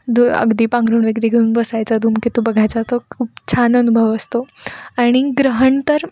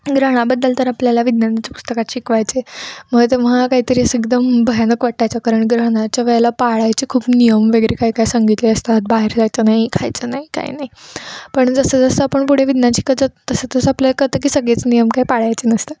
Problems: background sounds at intervals, background conversations at intervals